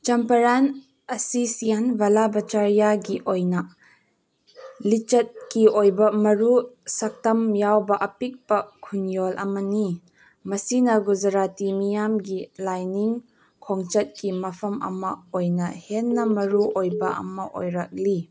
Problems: background sounds at intervals